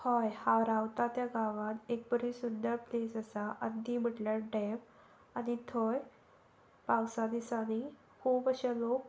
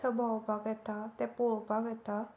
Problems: none marked